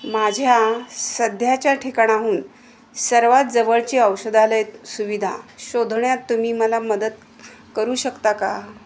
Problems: none marked